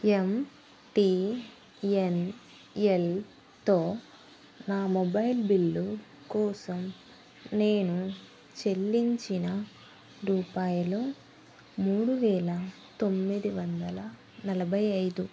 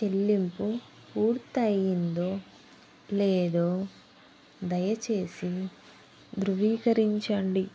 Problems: constant background noise